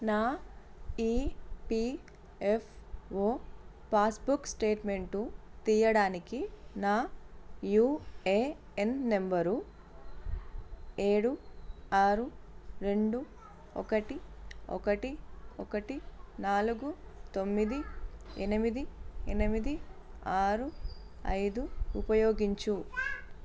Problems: constant background noise